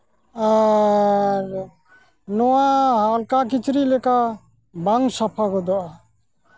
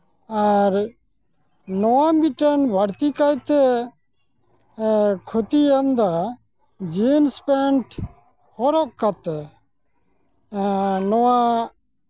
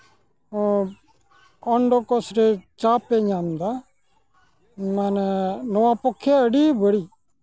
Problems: none marked